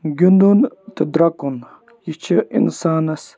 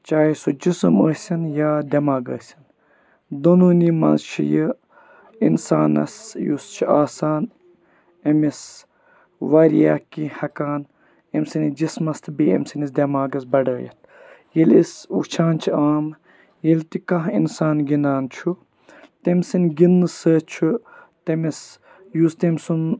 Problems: background sounds at intervals